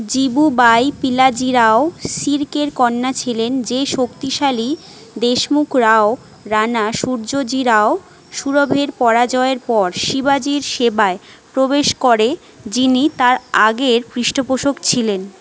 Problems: background conversations at intervals